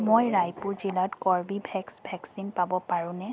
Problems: constant background noise, background conversations at intervals